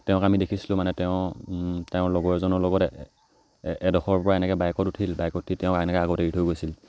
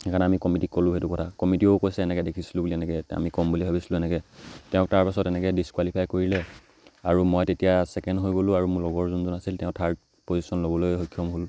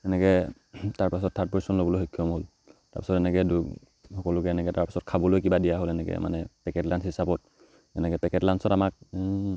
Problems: none marked